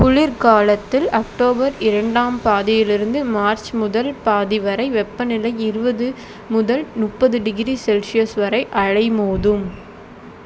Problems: constant background noise